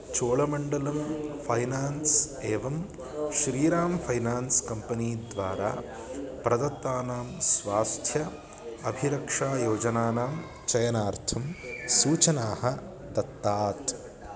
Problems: background sounds at intervals